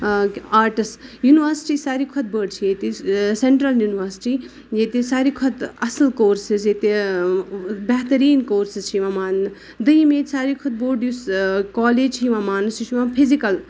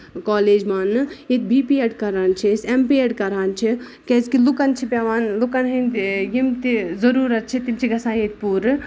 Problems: background sounds at intervals